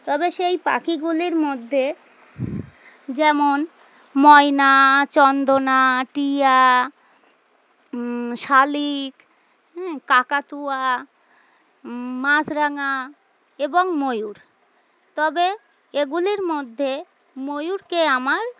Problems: constant background noise